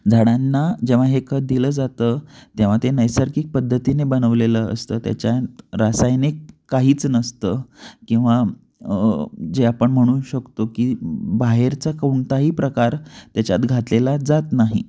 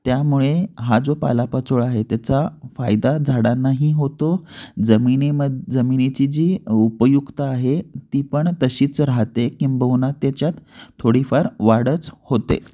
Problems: none marked